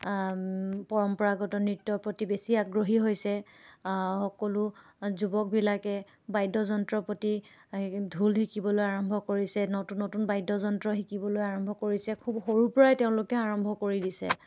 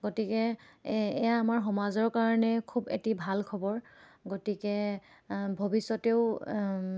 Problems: none marked